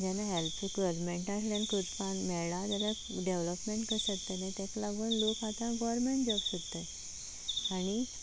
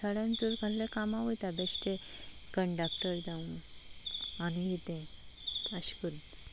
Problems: constant background noise